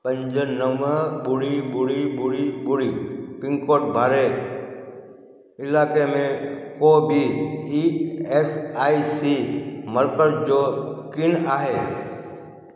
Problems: constant background noise, echo